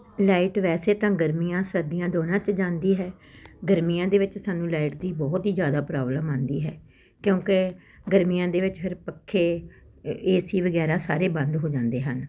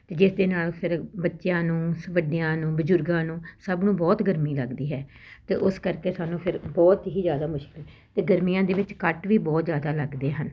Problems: constant background noise